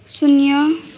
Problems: constant background noise